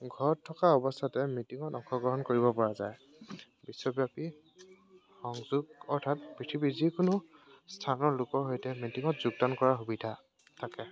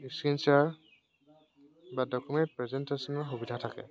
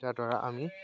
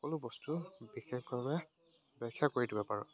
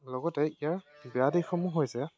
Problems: constant background noise